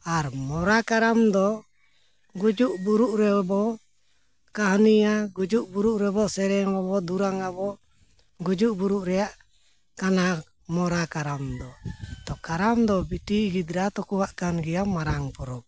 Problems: background sounds at intervals